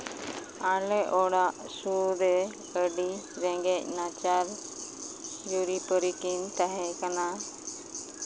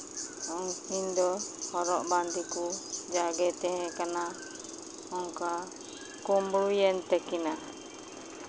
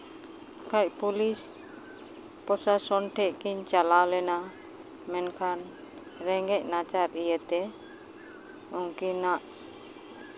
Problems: constant background noise